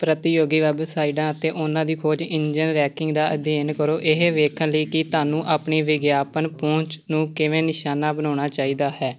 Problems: background sounds at intervals, background conversations at intervals